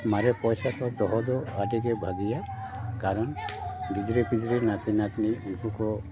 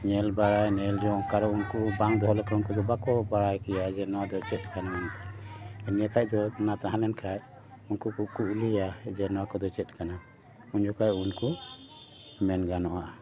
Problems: none marked